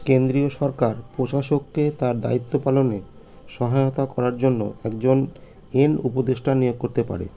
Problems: constant background noise